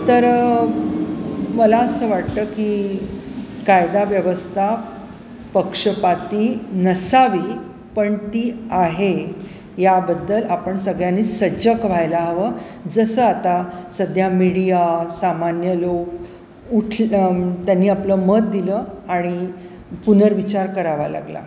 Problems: constant background noise